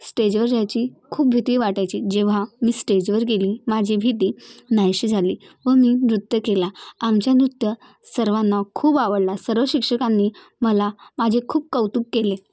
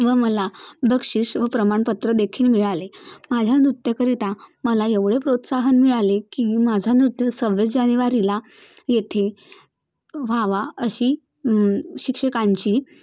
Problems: none marked